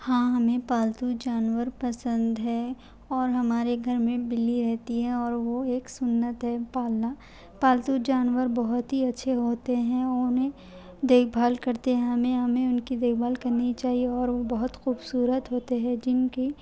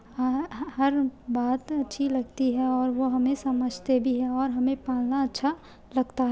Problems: constant background noise